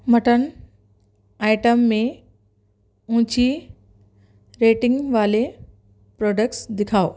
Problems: none marked